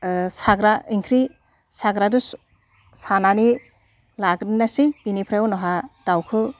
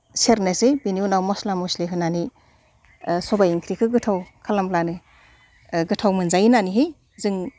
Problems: none marked